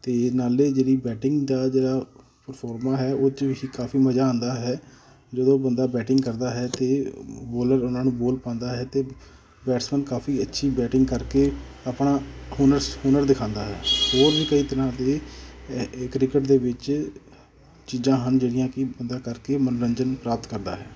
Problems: none marked